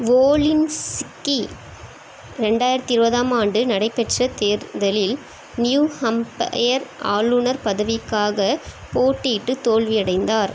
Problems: constant background noise